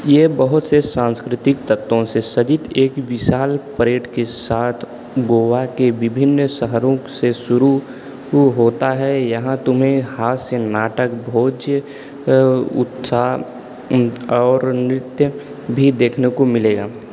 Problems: none marked